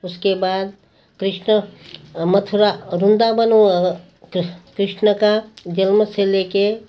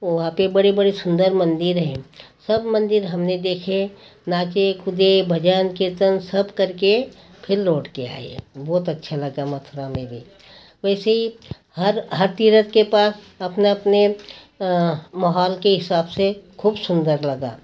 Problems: none marked